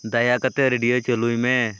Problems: constant background noise